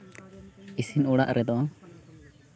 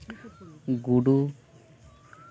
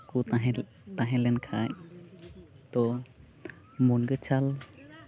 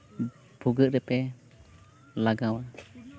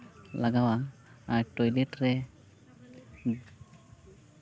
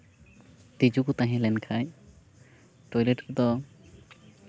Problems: constant background noise, background conversations at intervals